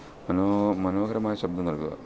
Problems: constant background noise, low volume